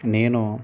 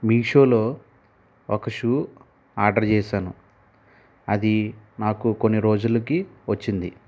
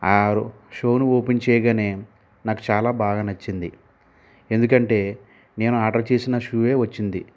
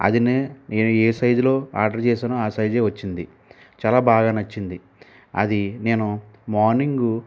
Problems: constant background noise